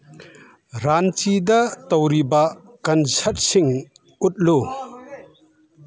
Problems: background conversations at intervals